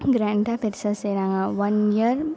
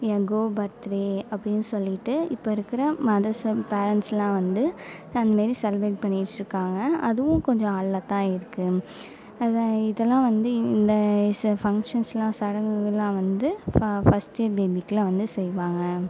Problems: none marked